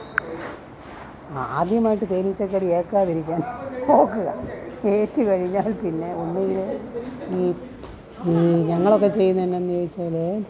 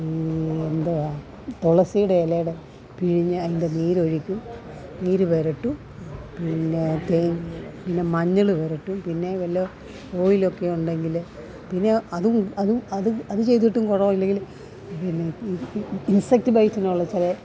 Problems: constant background noise